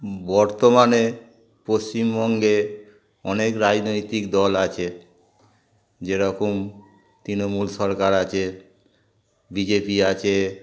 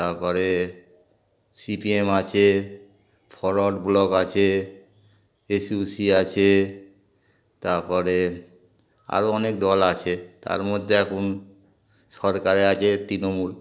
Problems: constant background noise, background conversations at intervals